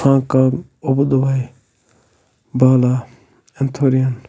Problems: constant background noise, low volume